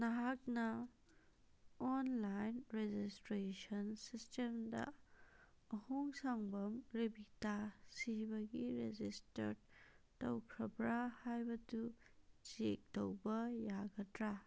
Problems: none marked